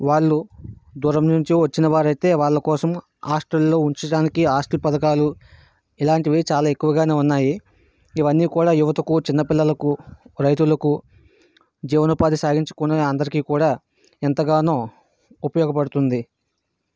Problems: background sounds at intervals